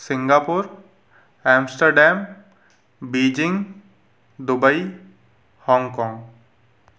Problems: background sounds at intervals